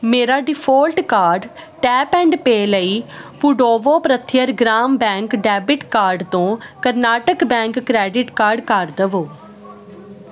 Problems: constant background noise